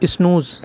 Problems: constant background noise